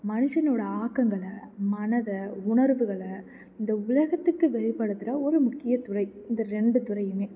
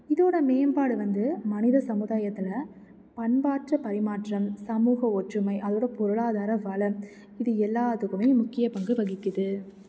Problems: background sounds at intervals